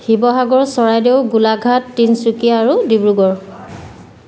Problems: constant background noise